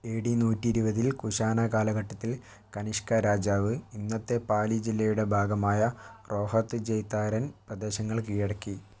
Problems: none marked